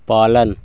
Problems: constant background noise